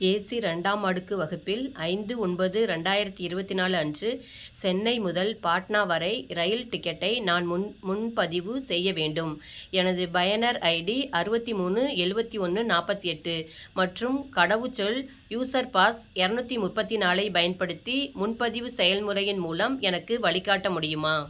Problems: none marked